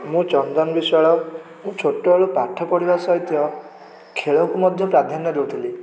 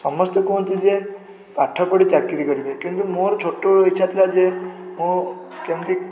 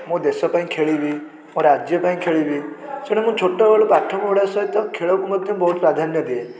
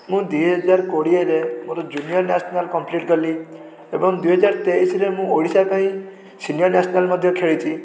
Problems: none marked